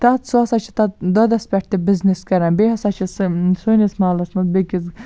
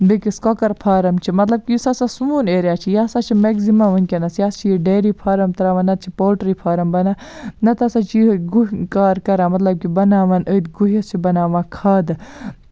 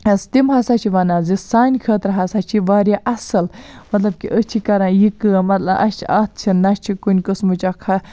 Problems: none marked